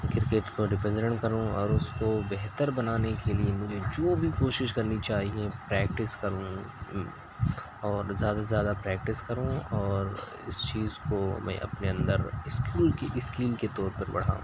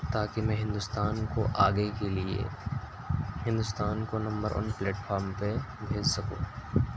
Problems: constant background noise, low volume